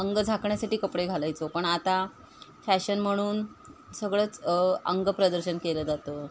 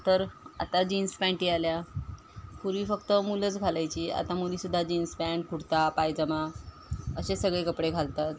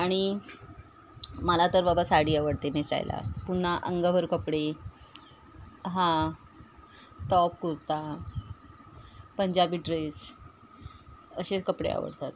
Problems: constant background noise